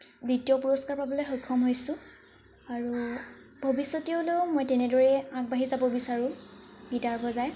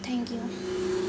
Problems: constant background noise